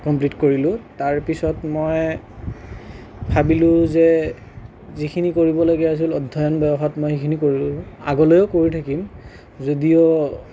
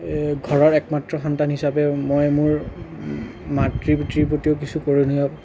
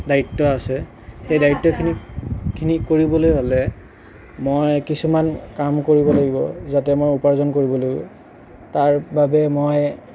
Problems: none marked